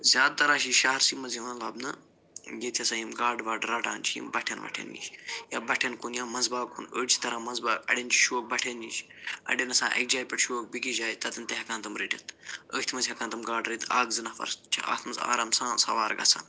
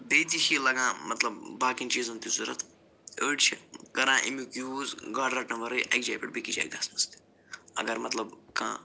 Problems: none marked